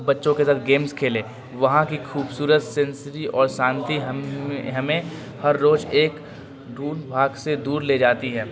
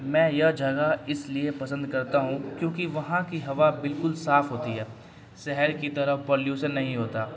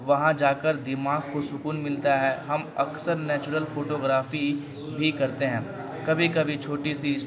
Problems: constant background noise